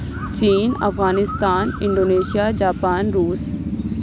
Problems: none marked